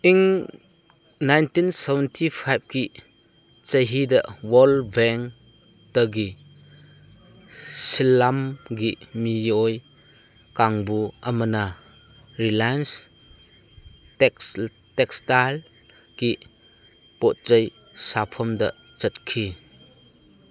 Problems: background sounds at intervals